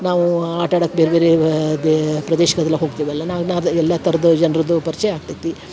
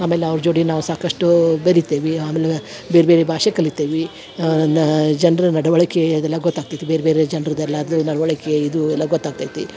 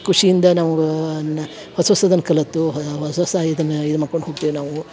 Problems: background sounds at intervals